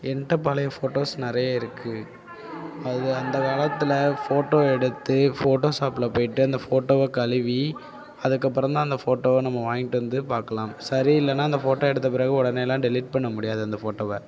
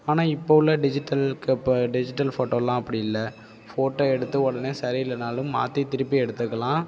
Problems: background sounds at intervals